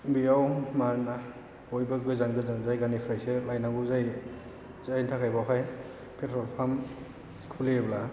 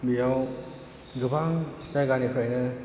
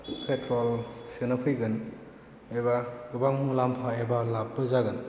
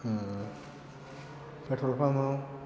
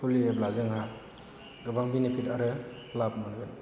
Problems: low volume